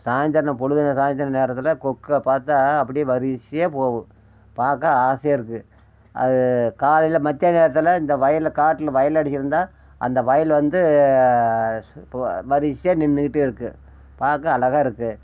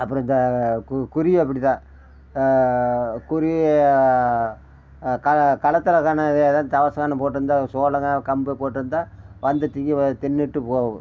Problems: background sounds at intervals